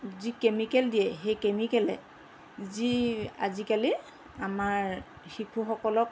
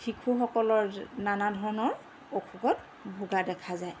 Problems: none marked